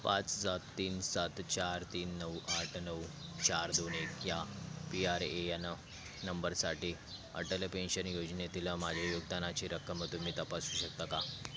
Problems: none marked